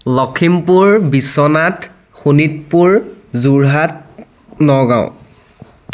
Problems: constant background noise